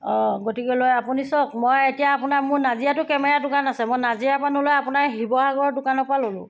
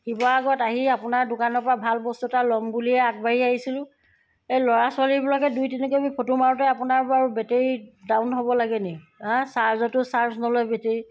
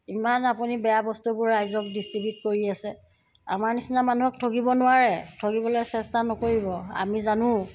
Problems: background sounds at intervals